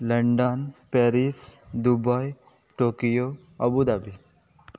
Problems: background sounds at intervals